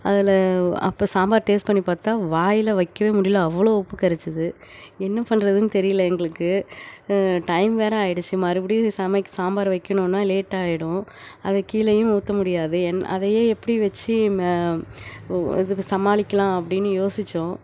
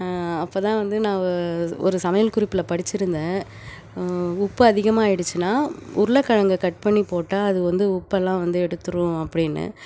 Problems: none marked